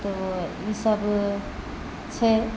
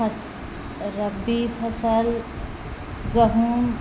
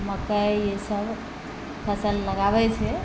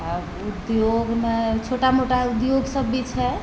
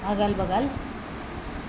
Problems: none marked